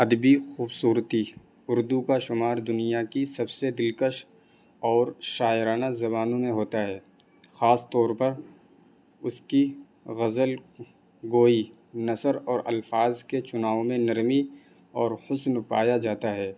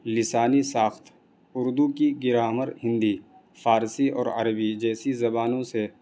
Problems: constant background noise